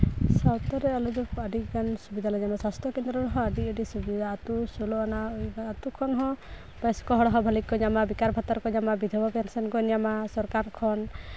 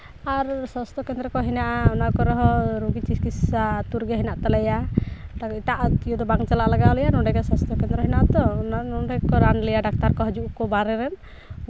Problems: background sounds at intervals